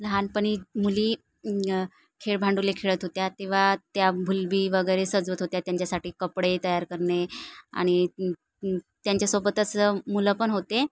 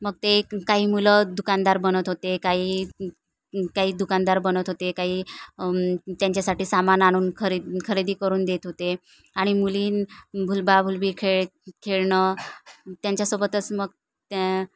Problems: none marked